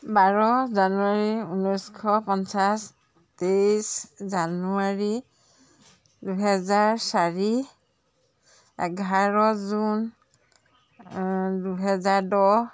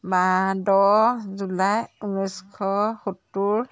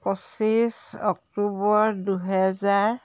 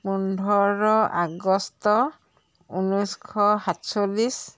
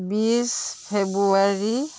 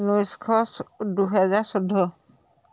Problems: constant background noise